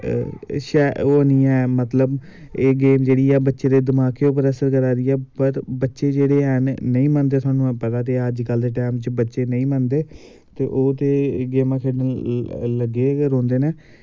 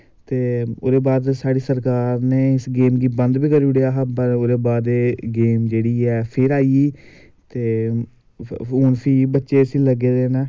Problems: none marked